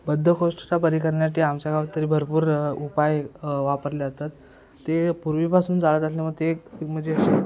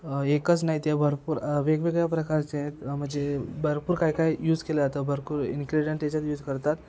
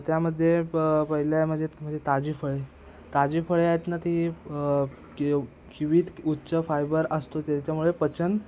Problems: constant background noise, background conversations at intervals